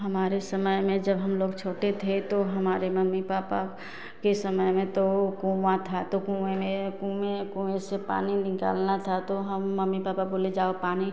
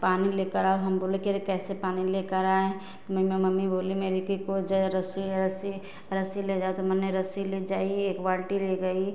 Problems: constant background noise